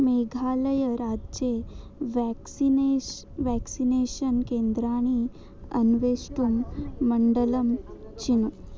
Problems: low volume